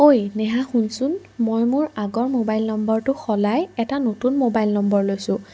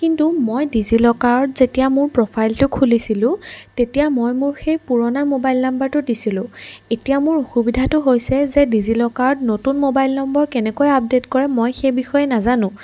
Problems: background sounds at intervals